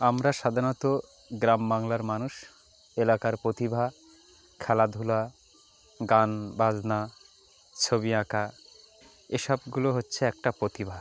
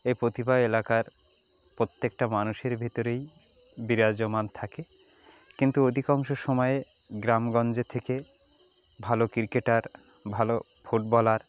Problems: background sounds at intervals, background conversations at intervals